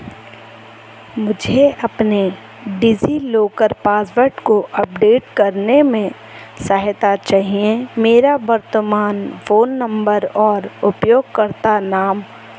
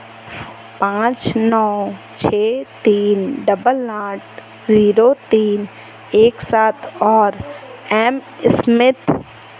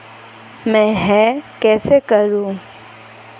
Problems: constant background noise